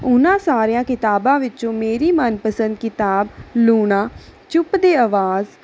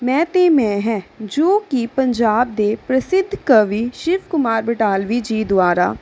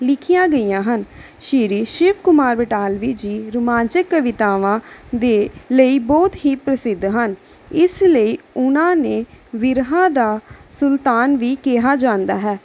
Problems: background sounds at intervals